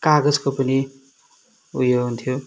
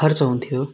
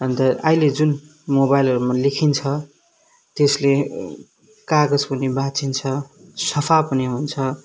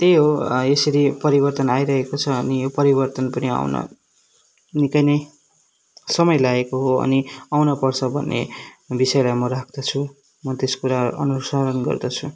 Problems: background sounds at intervals